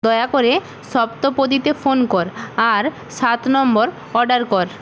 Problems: constant background noise